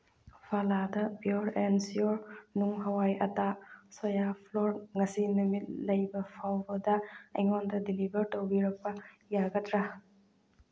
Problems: none marked